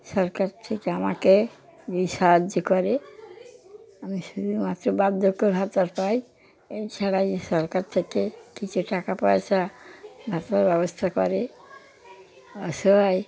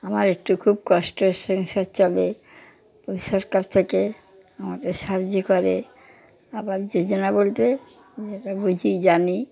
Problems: background sounds at intervals, background conversations at intervals